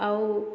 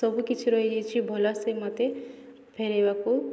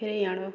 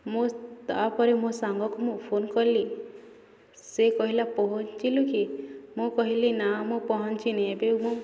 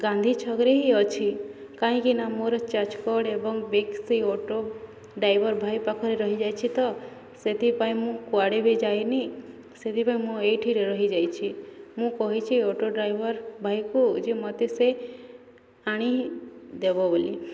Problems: constant background noise, continuous background conversations